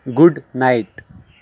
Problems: background sounds at intervals